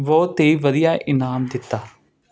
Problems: constant background noise